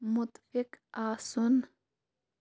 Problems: background sounds at intervals